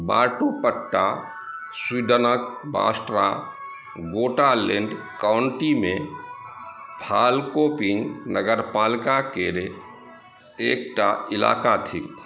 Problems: background sounds at intervals